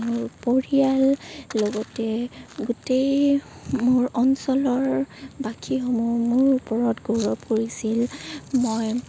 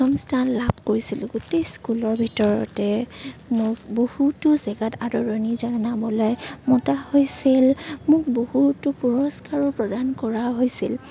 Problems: constant background noise